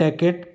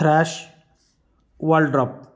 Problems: constant background noise